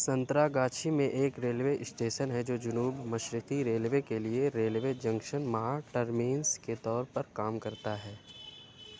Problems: none marked